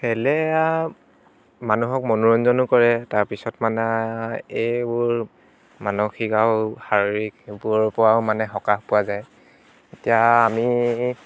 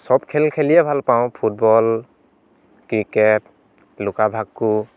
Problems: background sounds at intervals